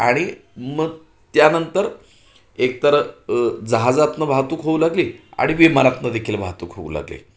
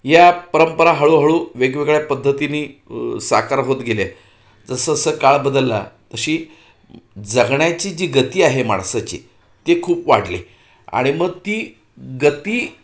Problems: none marked